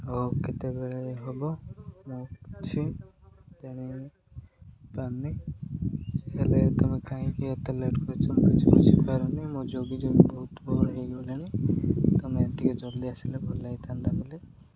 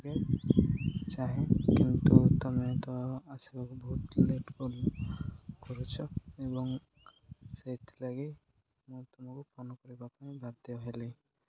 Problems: constant background noise